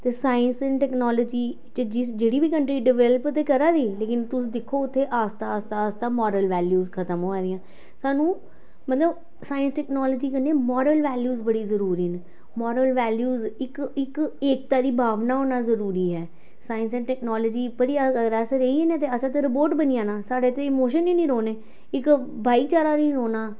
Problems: none marked